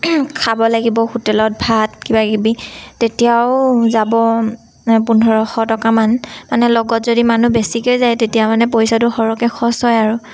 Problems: none marked